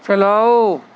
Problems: constant background noise